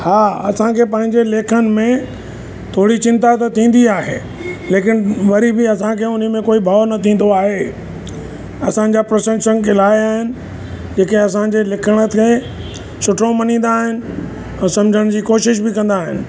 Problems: constant background noise